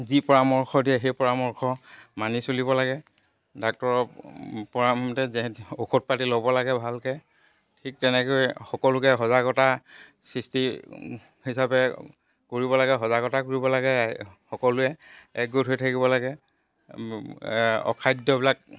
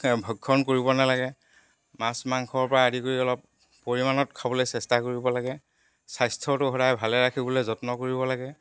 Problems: none marked